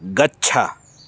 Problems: constant background noise